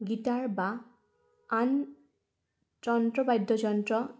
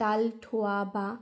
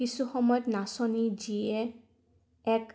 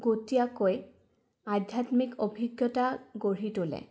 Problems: background sounds at intervals